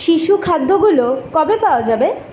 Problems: background sounds at intervals